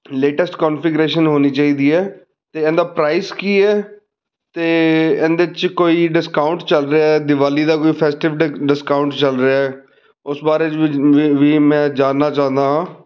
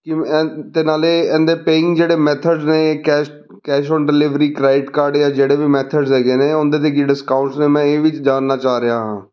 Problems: none marked